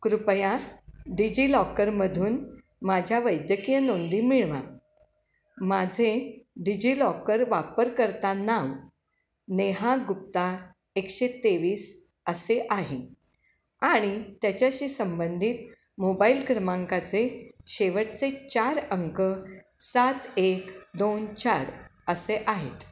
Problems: none marked